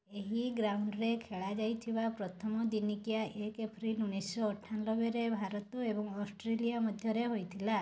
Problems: low volume